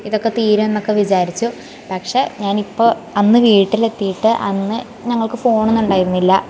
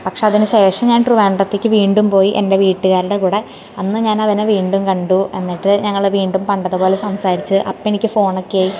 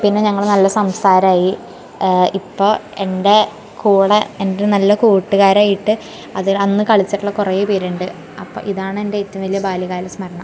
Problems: background sounds at intervals